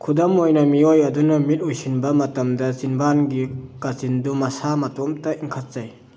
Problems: none marked